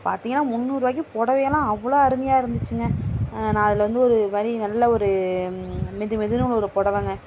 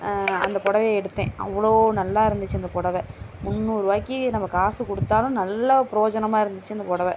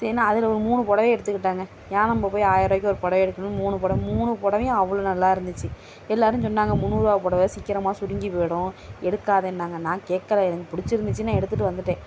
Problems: constant background noise